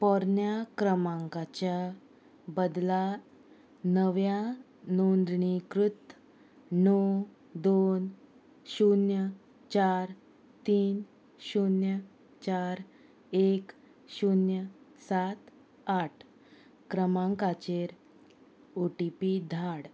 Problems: none marked